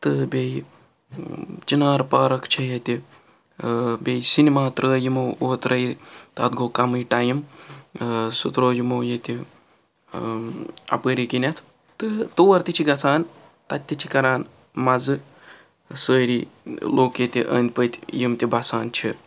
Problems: none marked